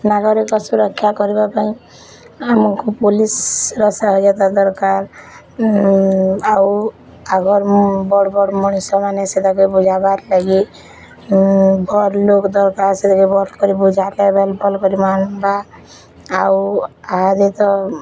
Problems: constant background noise